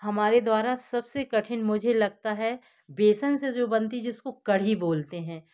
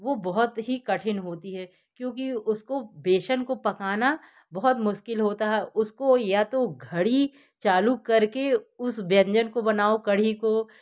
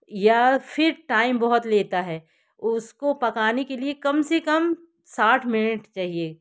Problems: background sounds at intervals